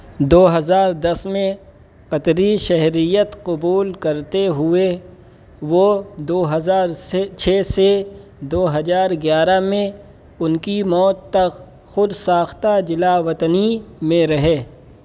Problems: constant background noise